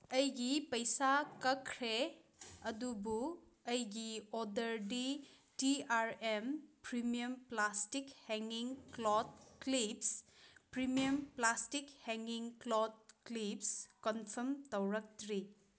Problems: background sounds at intervals